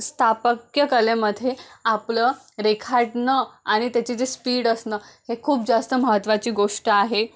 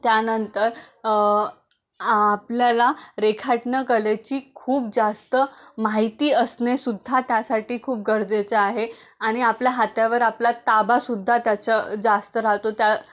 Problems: none marked